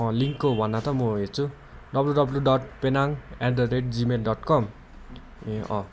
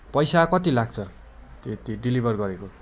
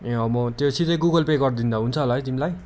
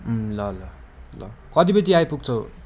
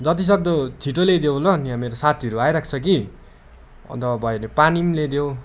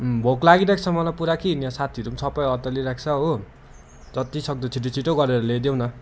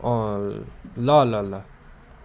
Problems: none marked